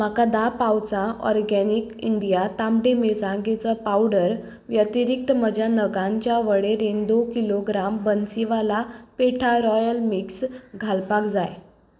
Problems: background sounds at intervals